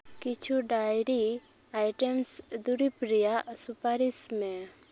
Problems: background sounds at intervals, low volume